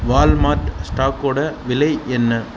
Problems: background sounds at intervals